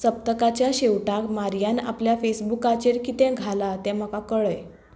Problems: background sounds at intervals